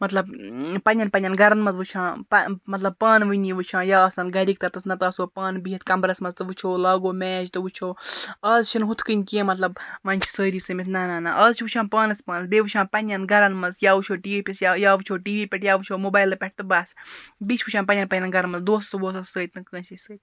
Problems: background sounds at intervals